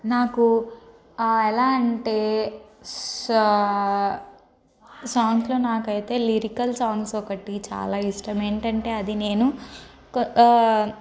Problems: constant background noise, background conversations at intervals